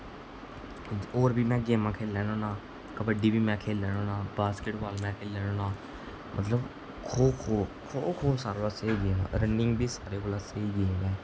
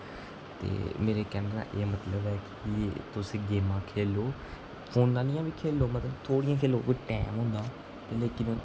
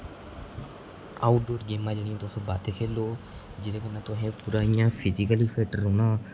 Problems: constant background noise